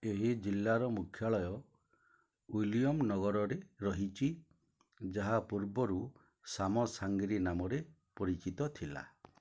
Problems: low volume